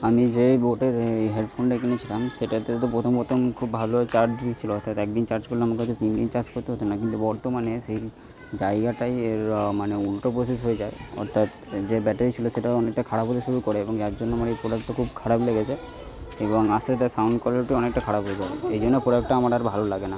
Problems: background sounds at intervals, continuous background conversations